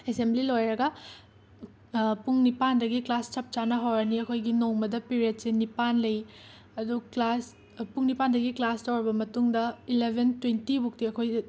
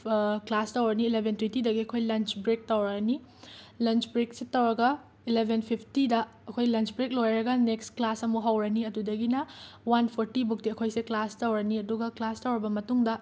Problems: constant background noise